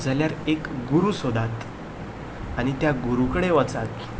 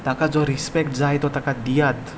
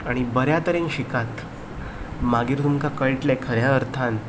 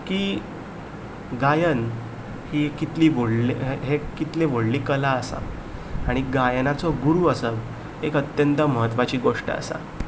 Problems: none marked